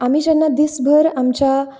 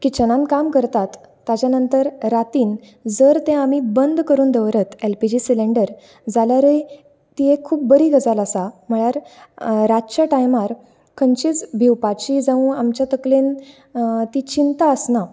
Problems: constant background noise